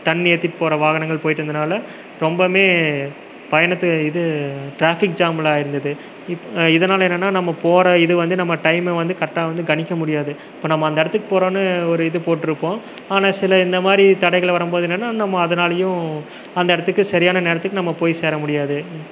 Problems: none marked